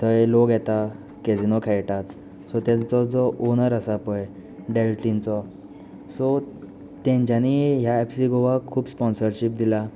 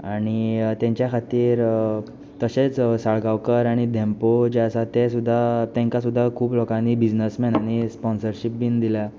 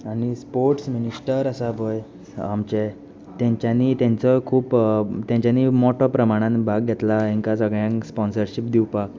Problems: constant background noise